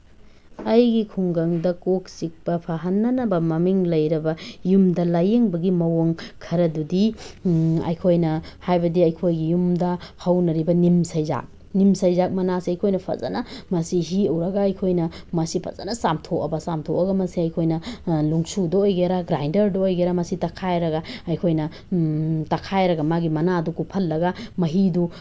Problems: background sounds at intervals